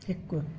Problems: none marked